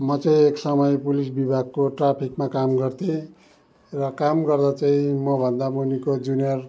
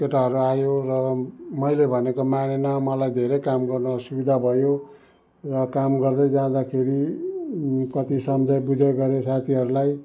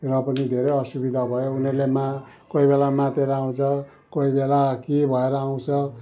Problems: background sounds at intervals